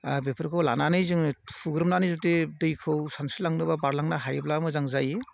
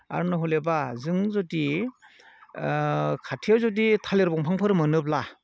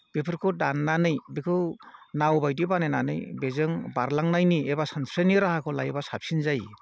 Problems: none marked